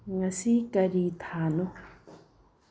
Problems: low volume